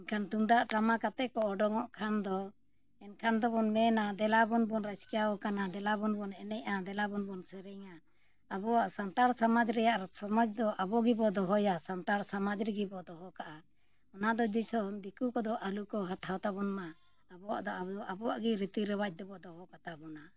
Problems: background sounds at intervals